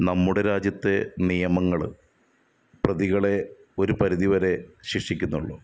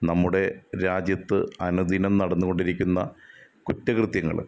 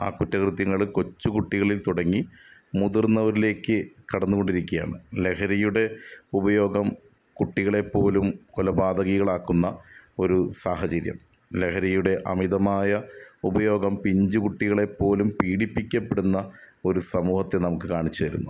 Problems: none marked